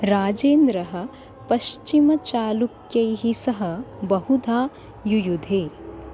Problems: constant background noise